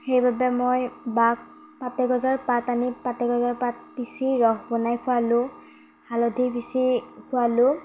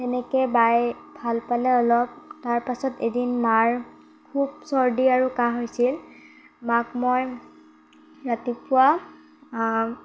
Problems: background sounds at intervals